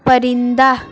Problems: constant background noise